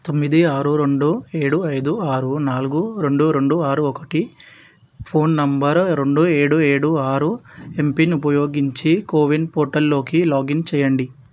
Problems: background sounds at intervals